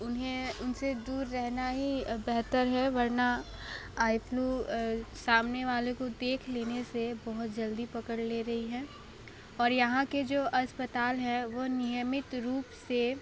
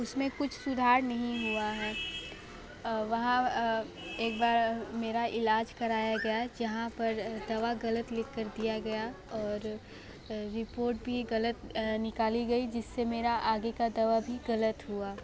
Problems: background conversations at intervals